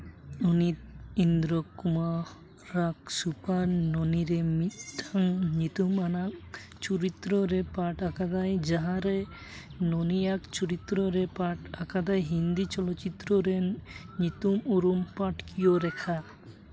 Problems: background sounds at intervals, background conversations at intervals